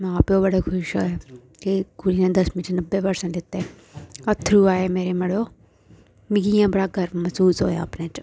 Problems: none marked